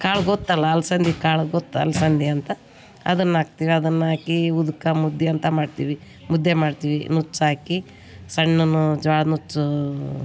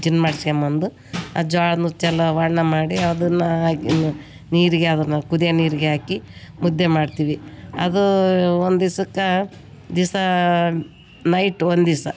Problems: none marked